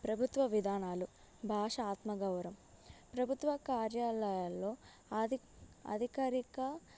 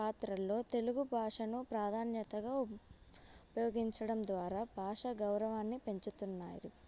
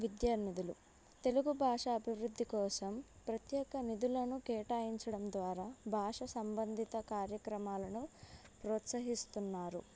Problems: background sounds at intervals